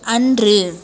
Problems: constant background noise